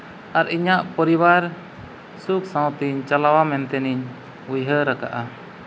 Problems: none marked